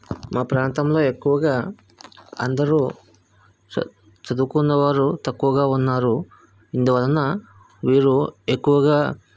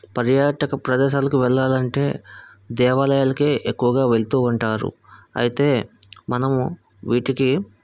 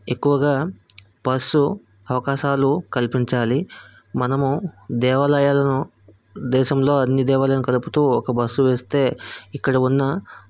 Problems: background sounds at intervals